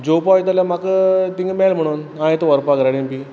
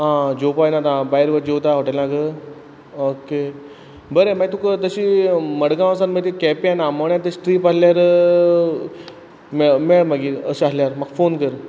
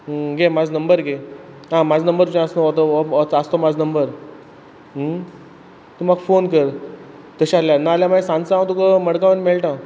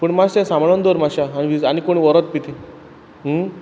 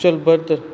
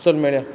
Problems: background sounds at intervals